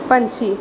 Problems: background sounds at intervals